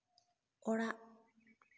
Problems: background sounds at intervals, echo